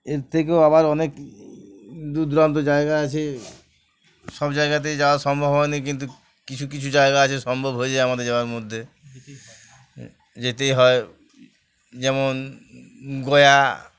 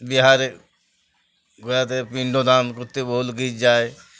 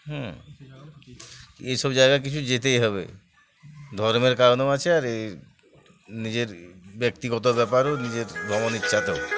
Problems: none marked